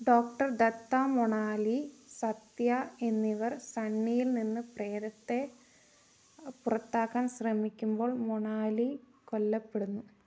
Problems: none marked